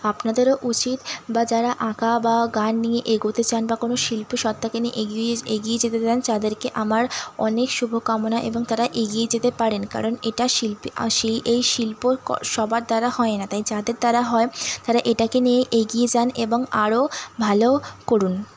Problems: constant background noise